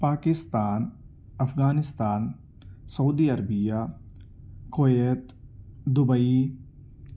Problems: none marked